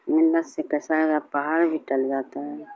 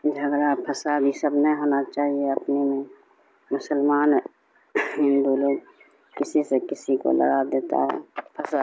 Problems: constant background noise